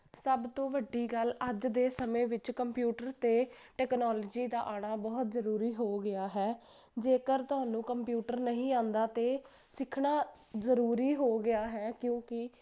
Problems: constant background noise